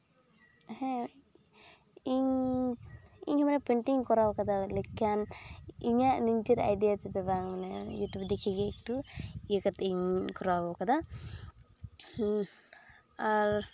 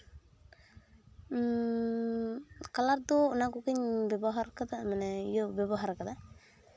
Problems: background sounds at intervals